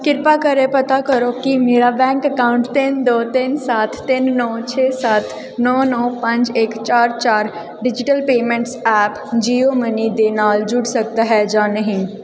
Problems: background sounds at intervals